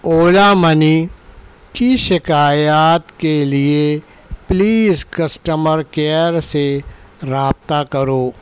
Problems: none marked